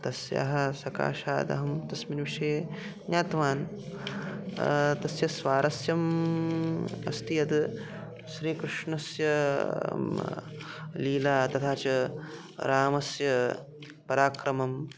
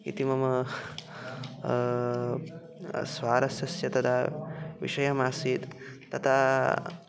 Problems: background conversations at intervals